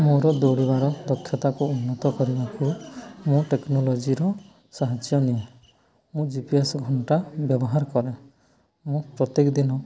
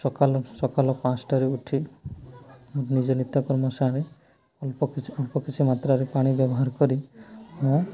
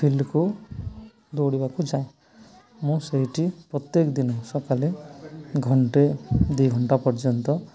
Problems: continuous background conversations